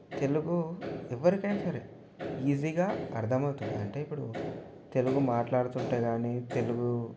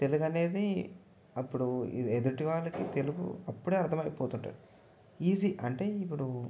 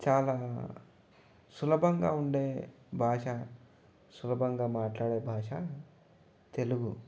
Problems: background sounds at intervals, low volume